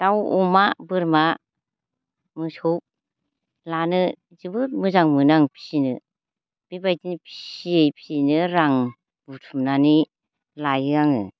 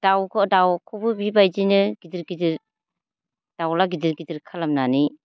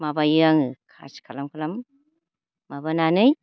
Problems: low volume